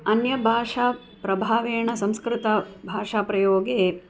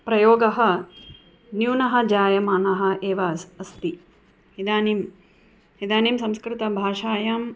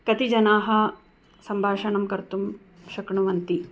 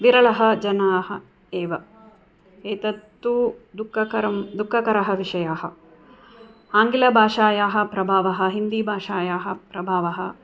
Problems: background sounds at intervals